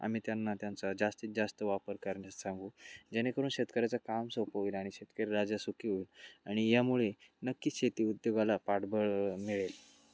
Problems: constant background noise, background conversations at intervals, low volume